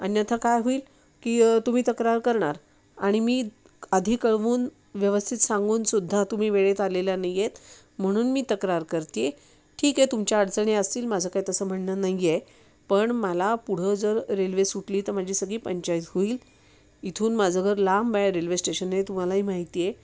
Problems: none marked